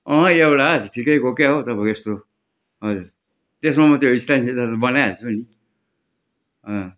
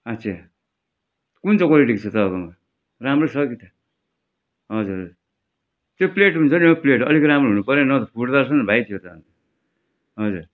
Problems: background sounds at intervals